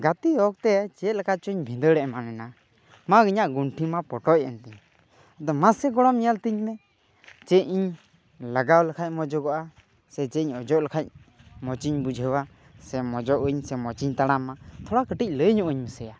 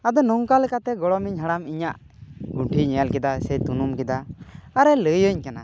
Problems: background sounds at intervals